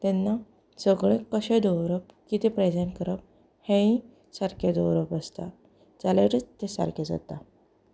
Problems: none marked